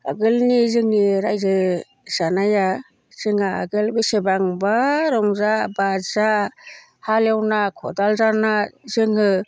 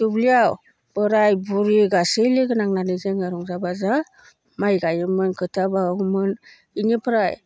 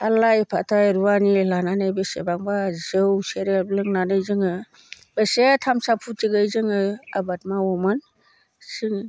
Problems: none marked